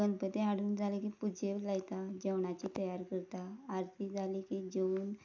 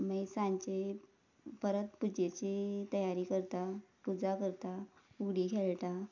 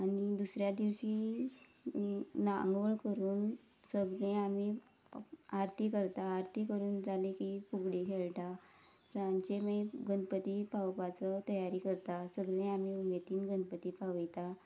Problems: background sounds at intervals